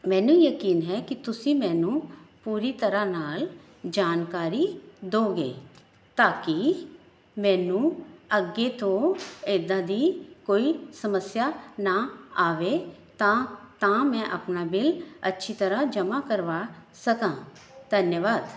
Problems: none marked